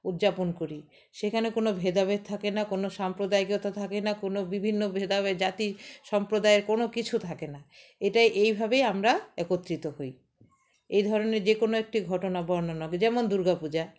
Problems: constant background noise, background conversations at intervals